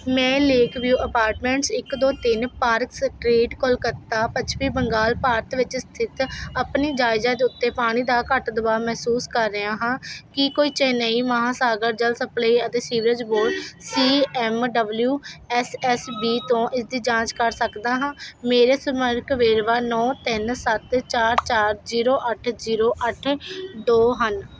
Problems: constant background noise